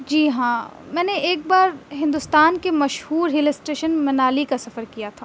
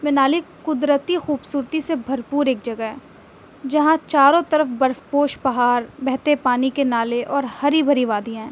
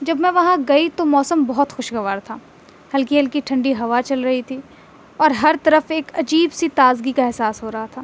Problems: constant background noise